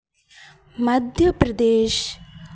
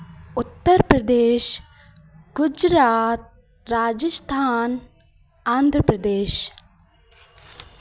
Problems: none marked